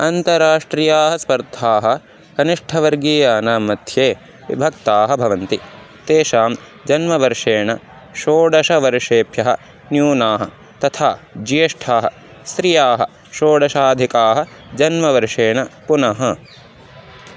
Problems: constant background noise